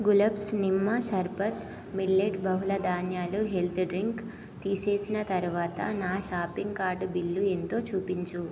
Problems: none marked